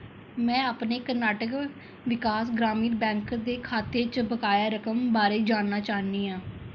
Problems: background sounds at intervals